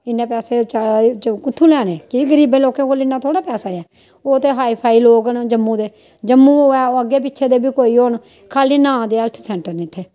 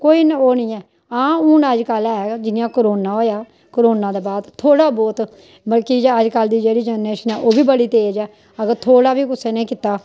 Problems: none marked